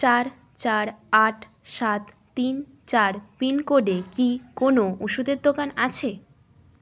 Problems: constant background noise, background conversations at intervals